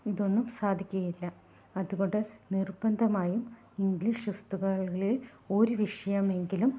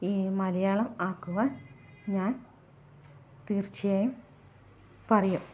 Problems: low volume